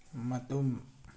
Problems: low volume